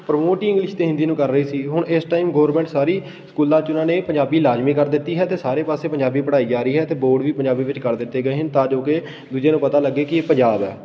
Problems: constant background noise